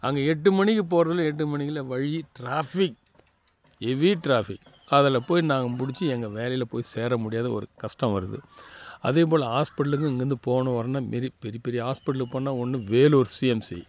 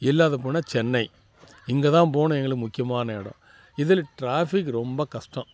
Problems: constant background noise